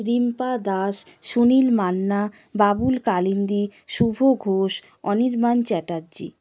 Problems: constant background noise